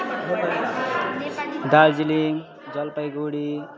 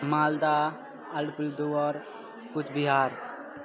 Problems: continuous background conversations